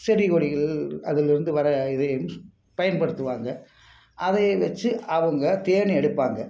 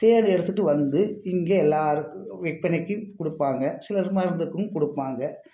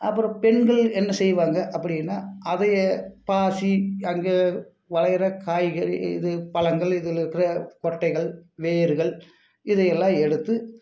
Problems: background sounds at intervals